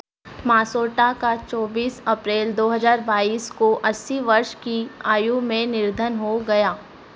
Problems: constant background noise